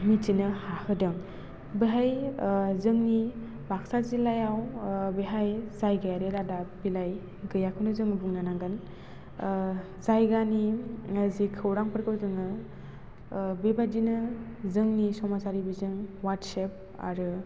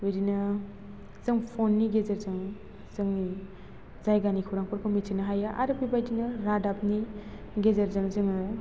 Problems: constant background noise